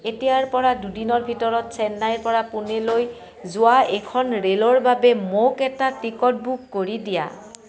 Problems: continuous background conversations